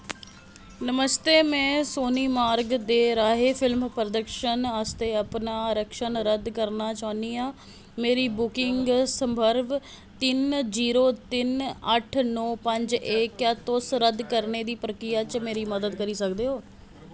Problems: background sounds at intervals